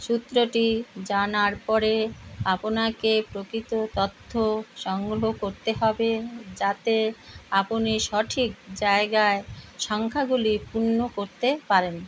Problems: constant background noise